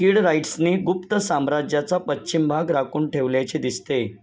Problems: none marked